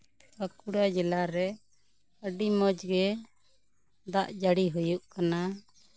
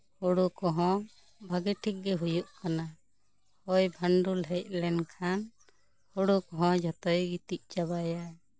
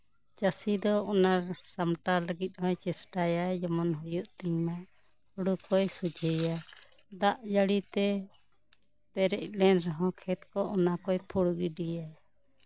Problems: none marked